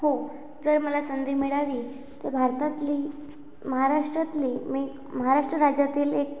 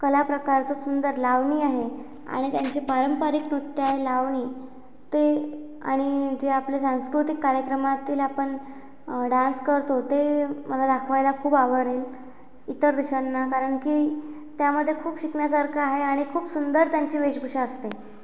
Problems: background sounds at intervals